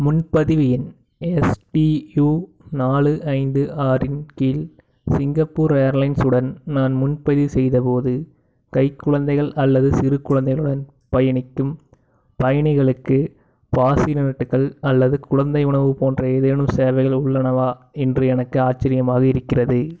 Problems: background sounds at intervals